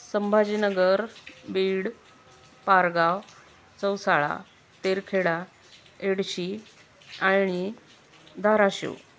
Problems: constant background noise